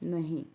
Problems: none marked